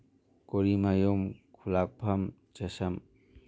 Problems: none marked